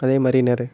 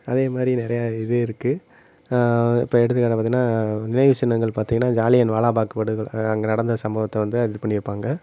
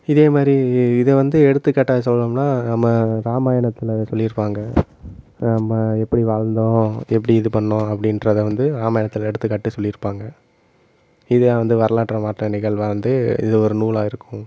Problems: constant background noise, low volume